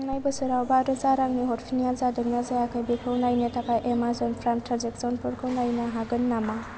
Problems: low volume